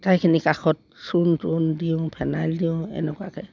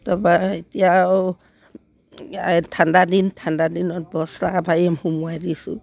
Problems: none marked